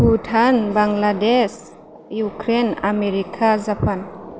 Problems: constant background noise